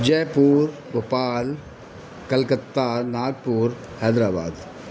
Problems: constant background noise